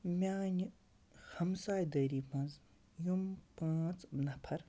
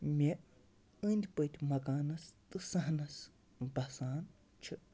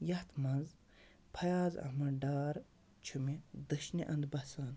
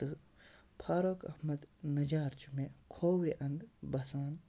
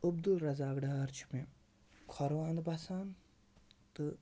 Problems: constant background noise, low volume